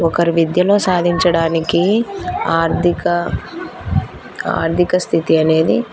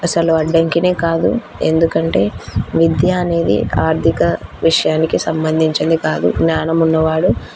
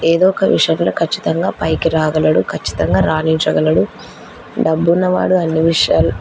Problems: background sounds at intervals, background conversations at intervals